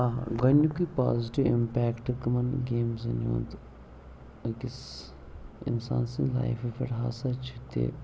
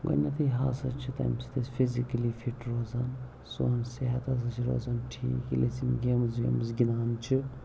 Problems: background sounds at intervals, low volume